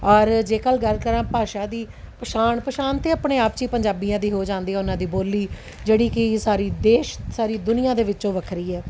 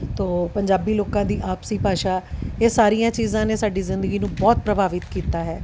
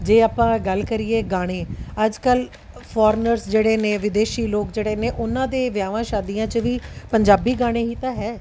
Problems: background sounds at intervals